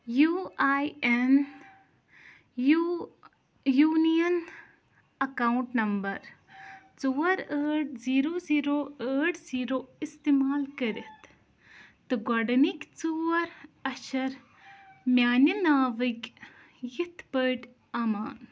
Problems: none marked